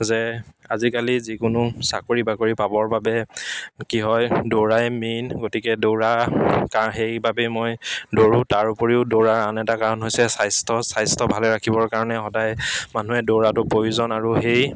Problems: background sounds at intervals, background conversations at intervals